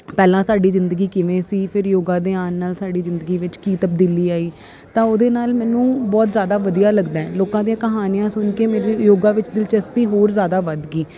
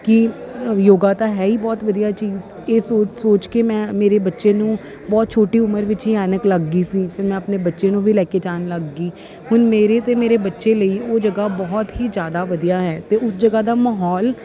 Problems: constant background noise